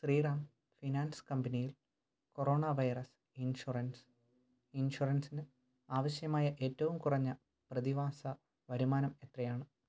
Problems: low volume